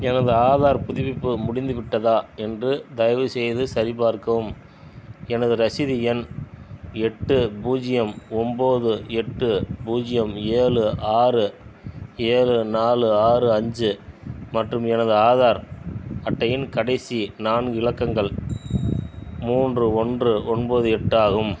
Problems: none marked